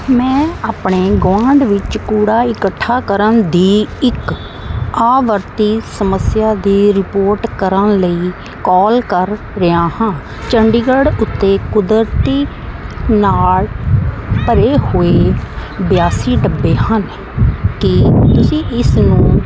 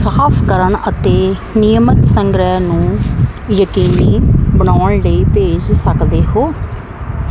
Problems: none marked